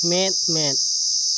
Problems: constant background noise